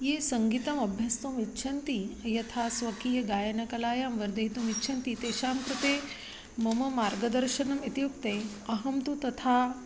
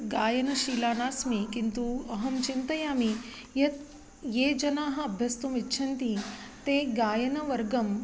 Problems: constant background noise